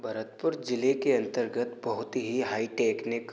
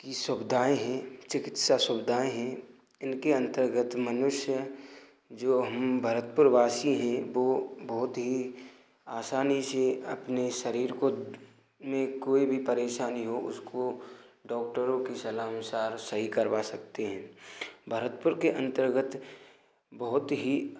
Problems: none marked